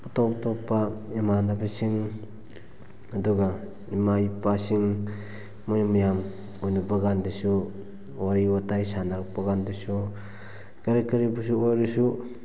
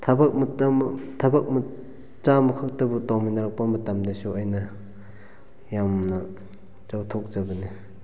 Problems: background sounds at intervals